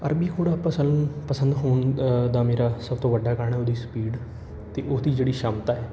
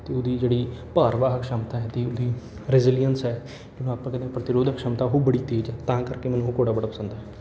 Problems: none marked